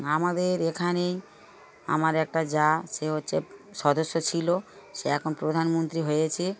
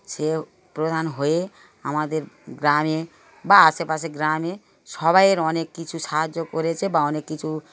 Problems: background sounds at intervals, background conversations at intervals